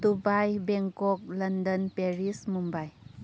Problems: low volume